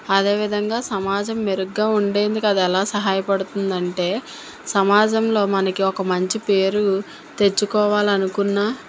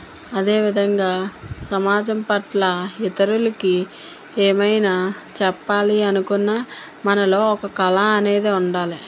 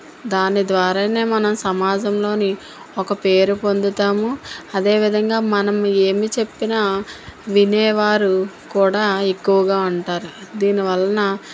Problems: constant background noise